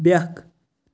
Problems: constant background noise